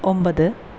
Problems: constant background noise